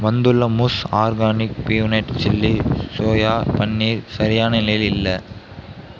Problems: background sounds at intervals